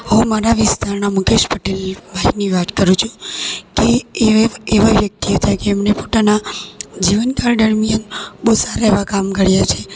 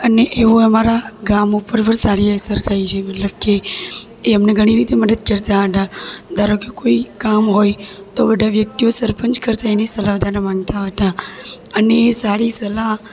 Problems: echo